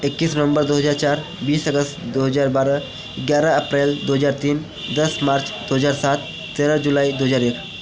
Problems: none marked